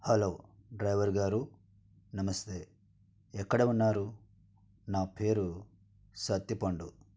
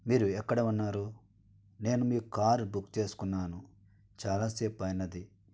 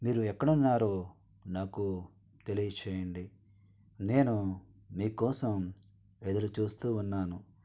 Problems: none marked